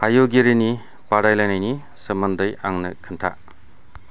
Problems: none marked